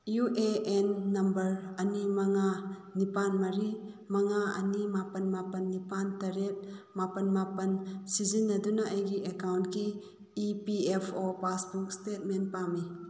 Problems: none marked